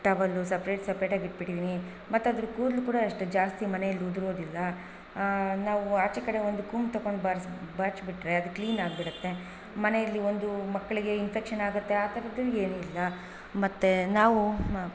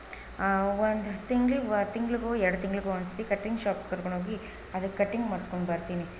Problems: background sounds at intervals